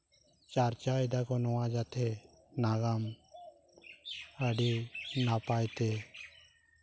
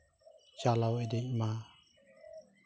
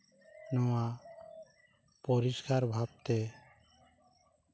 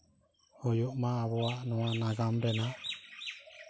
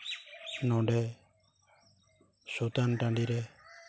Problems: none marked